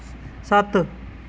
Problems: constant background noise